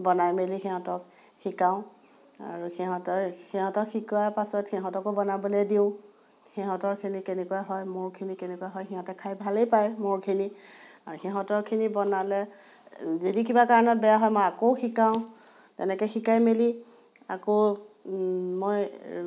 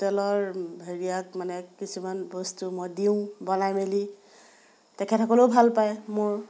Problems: background sounds at intervals